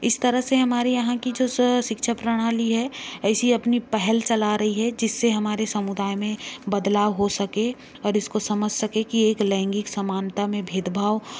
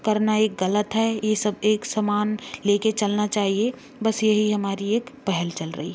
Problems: none marked